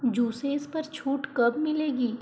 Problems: constant background noise